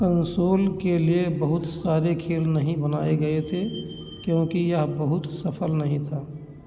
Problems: echo